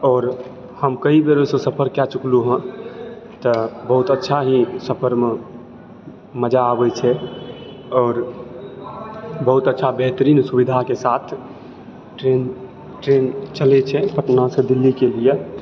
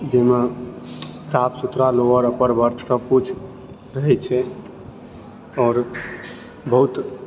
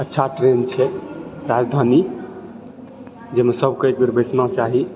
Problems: background sounds at intervals